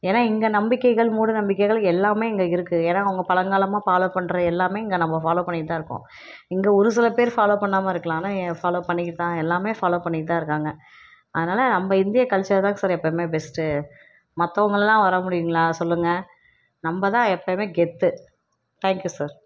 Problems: none marked